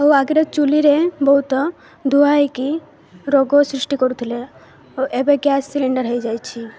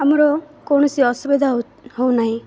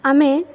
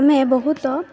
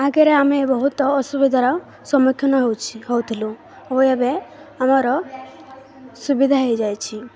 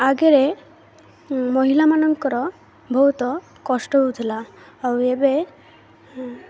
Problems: none marked